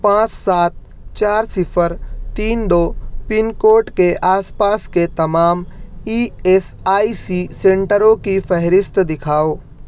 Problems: none marked